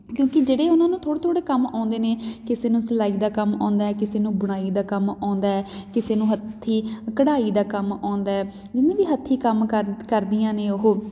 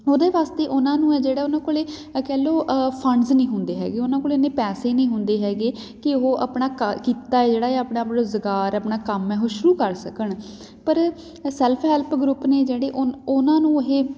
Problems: background sounds at intervals